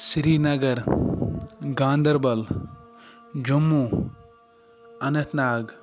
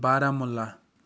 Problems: background conversations at intervals